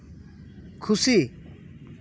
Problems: none marked